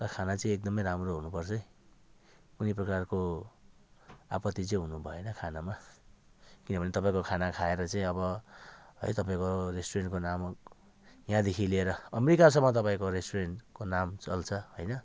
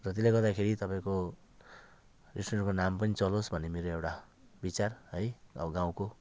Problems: background conversations at intervals